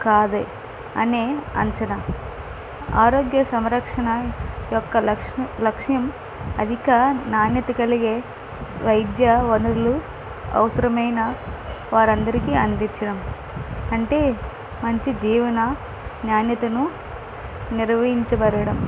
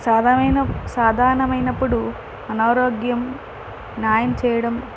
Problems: none marked